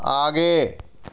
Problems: none marked